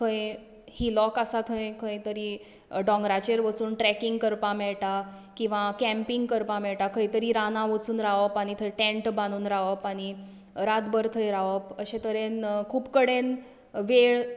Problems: background sounds at intervals